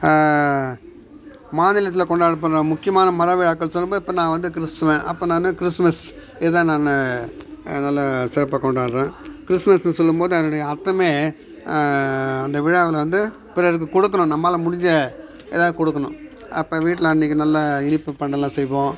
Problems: background sounds at intervals, background conversations at intervals